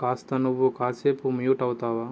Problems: none marked